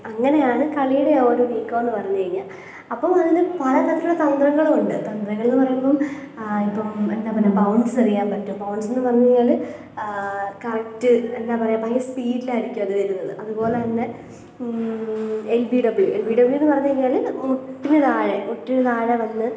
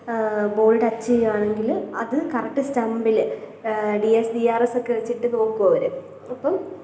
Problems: low volume